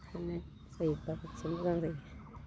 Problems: constant background noise